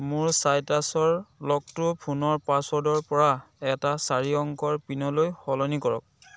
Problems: background sounds at intervals